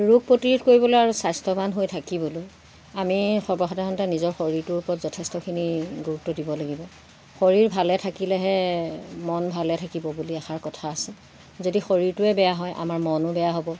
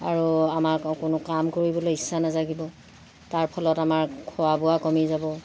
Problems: constant background noise, background conversations at intervals